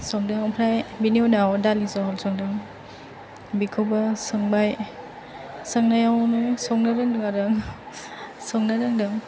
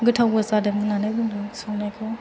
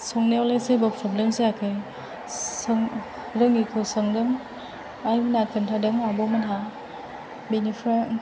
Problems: constant background noise, background conversations at intervals